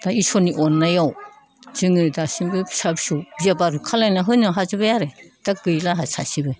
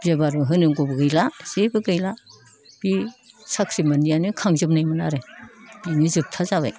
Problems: none marked